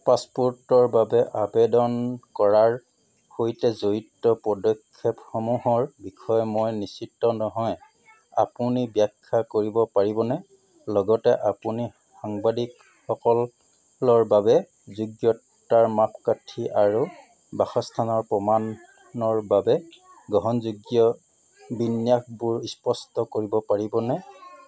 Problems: background sounds at intervals